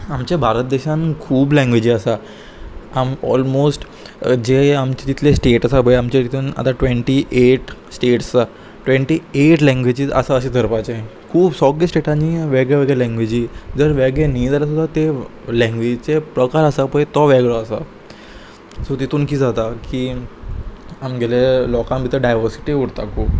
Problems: constant background noise